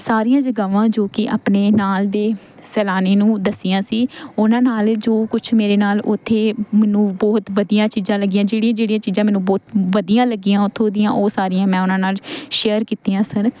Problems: constant background noise